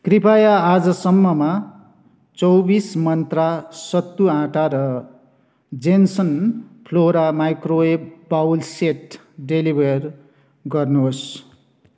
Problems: background sounds at intervals